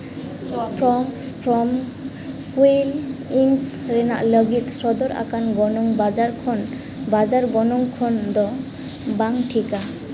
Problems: constant background noise, echo